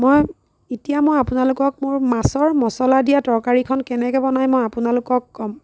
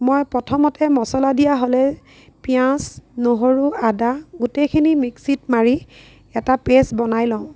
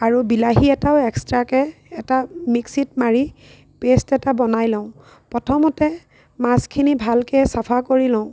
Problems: none marked